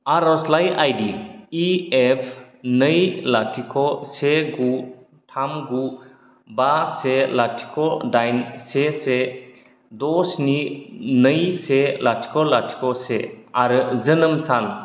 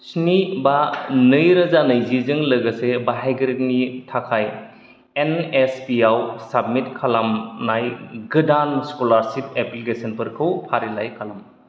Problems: none marked